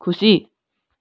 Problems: background sounds at intervals